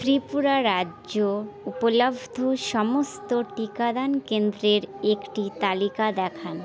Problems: none marked